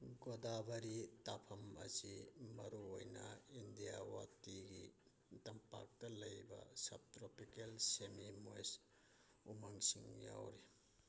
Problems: background sounds at intervals, low volume